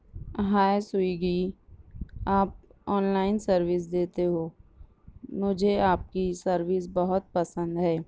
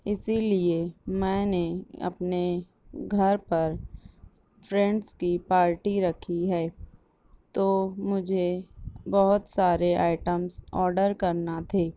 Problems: none marked